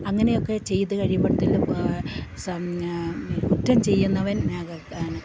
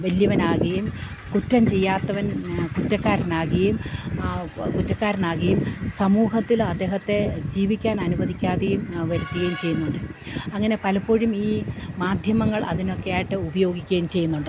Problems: none marked